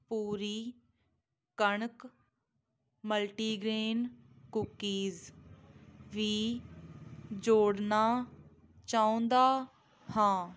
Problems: none marked